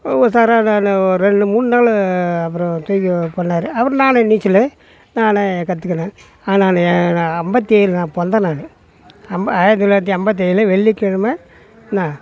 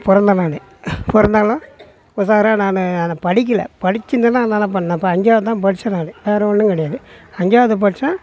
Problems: background sounds at intervals, background conversations at intervals